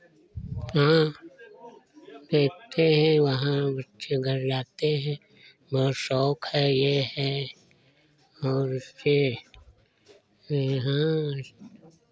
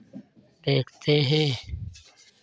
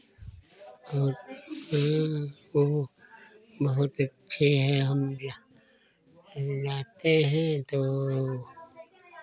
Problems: constant background noise